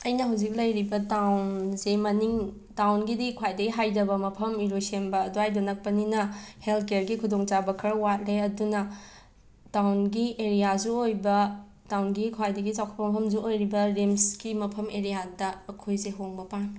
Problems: background sounds at intervals